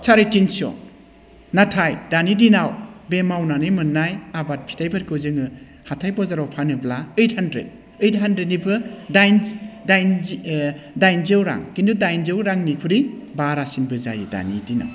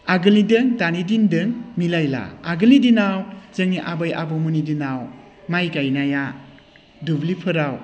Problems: none marked